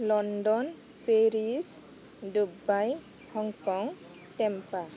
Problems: constant background noise